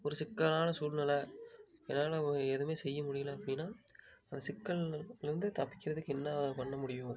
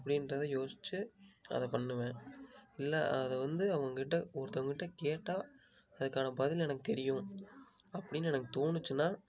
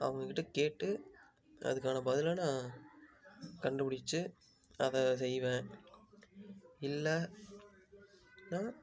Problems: low volume